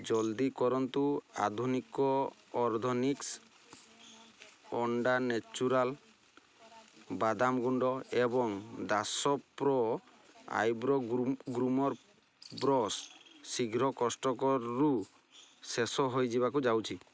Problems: none marked